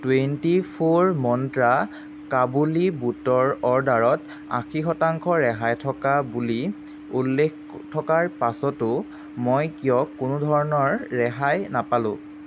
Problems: constant background noise